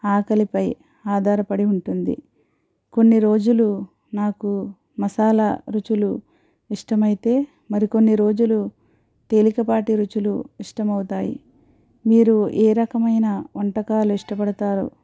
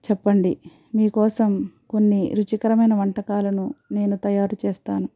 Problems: none marked